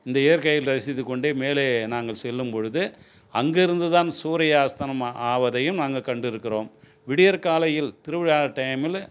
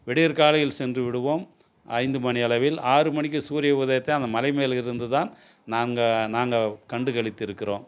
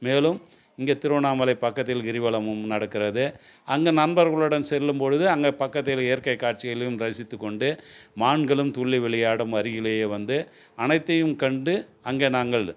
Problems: none marked